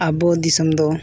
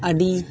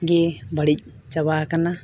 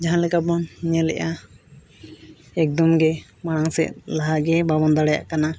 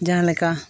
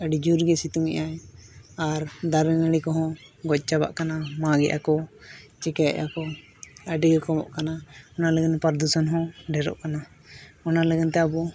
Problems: background sounds at intervals